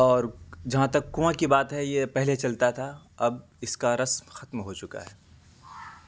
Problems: constant background noise